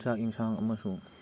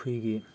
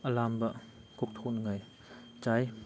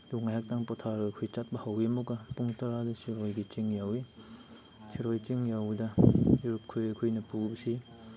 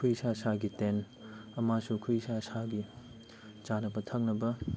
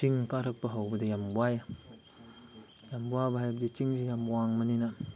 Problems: background sounds at intervals